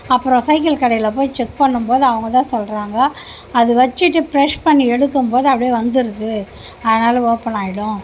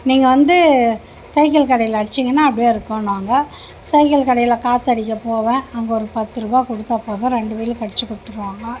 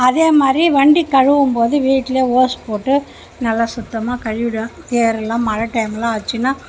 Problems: background conversations at intervals